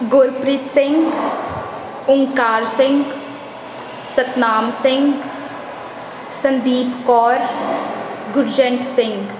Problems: none marked